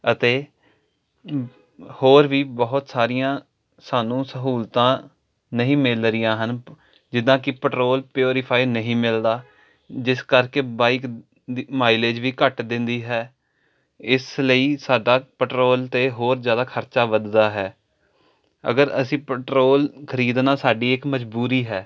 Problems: none marked